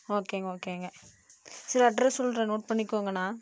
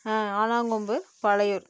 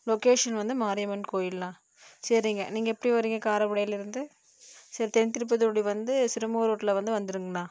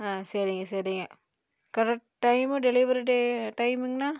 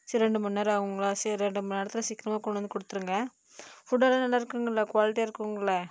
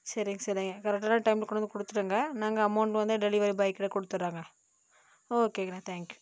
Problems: low volume